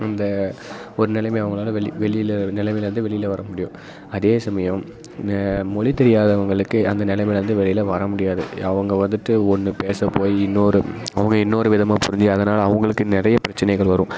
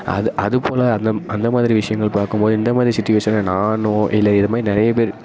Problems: constant background noise